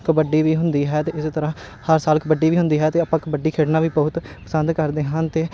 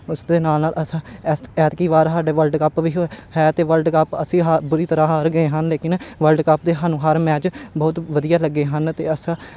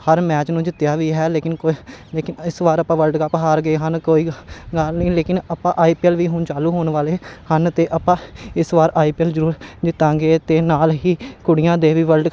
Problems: constant background noise